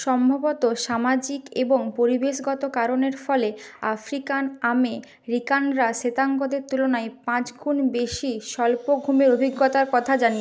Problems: background sounds at intervals